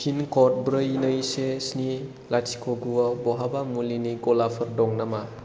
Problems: none marked